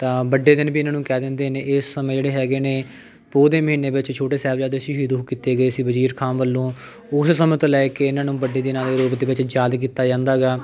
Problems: background conversations at intervals